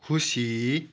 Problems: none marked